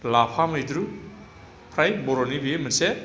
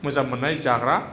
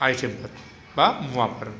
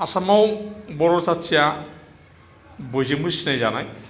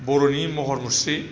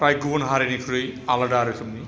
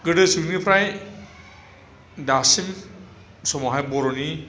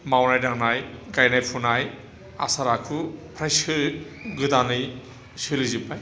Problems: low volume